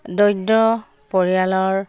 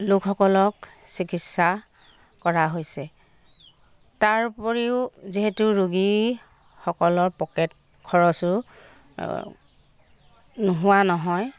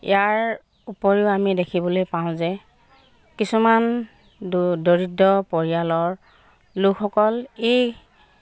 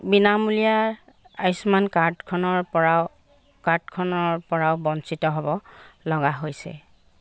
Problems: background sounds at intervals